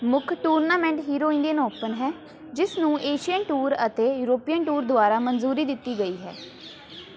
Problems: constant background noise, continuous background conversations